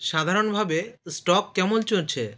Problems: constant background noise